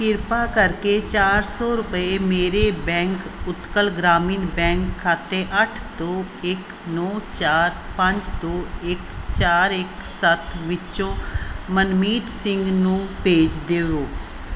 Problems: background sounds at intervals